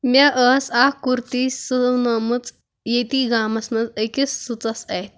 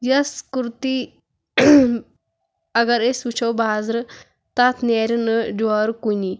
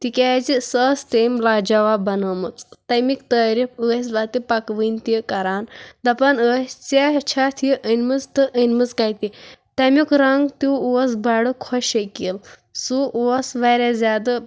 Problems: background sounds at intervals